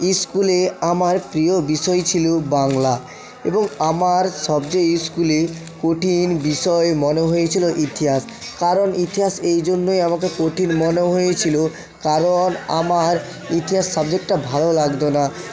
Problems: continuous background conversations